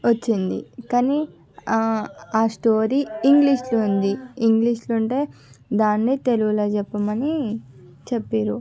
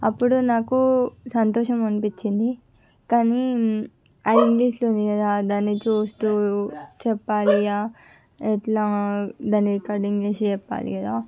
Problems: background sounds at intervals